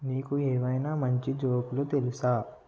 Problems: low volume